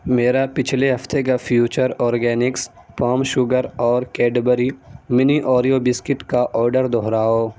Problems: background sounds at intervals